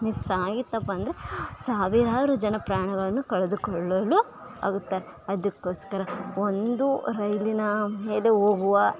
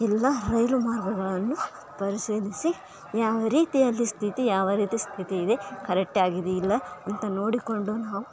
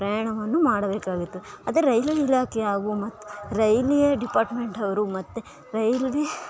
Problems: none marked